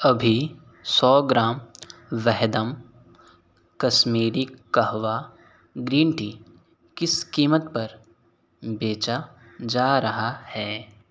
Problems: none marked